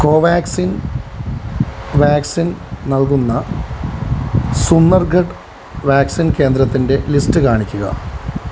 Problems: constant background noise